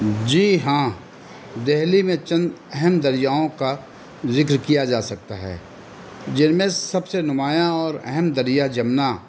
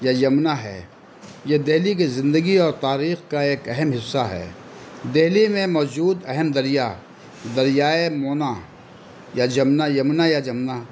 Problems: constant background noise